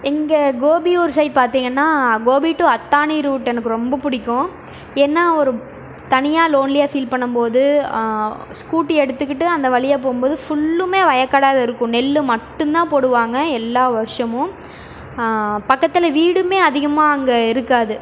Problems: none marked